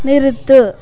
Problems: constant background noise, continuous background conversations